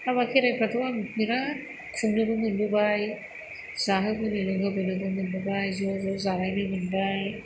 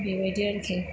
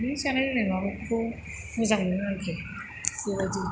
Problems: background sounds at intervals